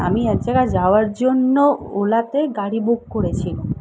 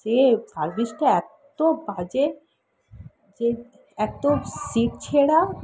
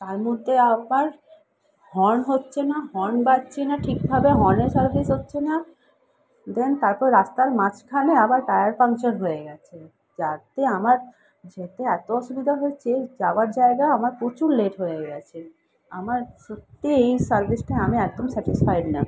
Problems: background sounds at intervals